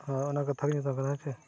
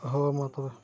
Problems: constant background noise, background conversations at intervals, low volume